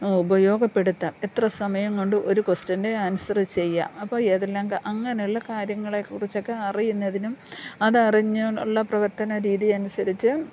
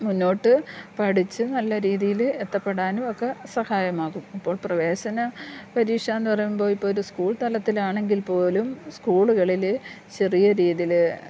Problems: none marked